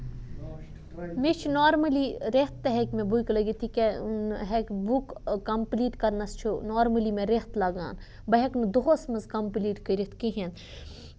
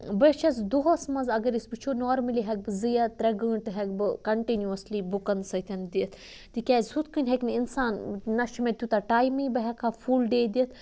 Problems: background sounds at intervals